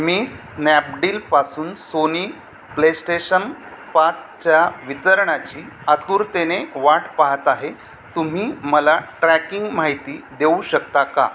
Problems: constant background noise